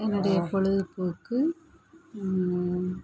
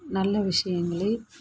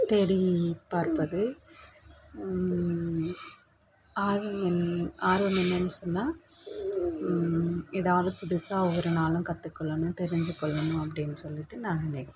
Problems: background sounds at intervals